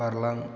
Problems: constant background noise